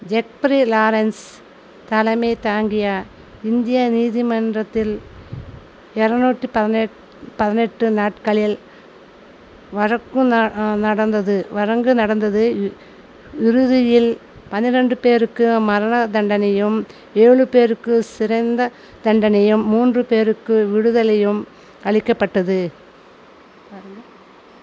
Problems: constant background noise